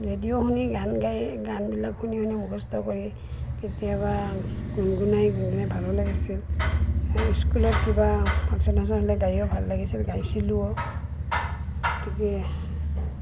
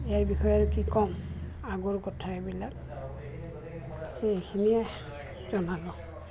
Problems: constant background noise, background conversations at intervals